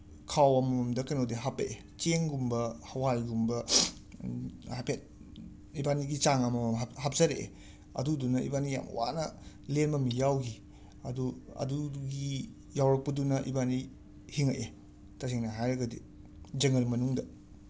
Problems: background sounds at intervals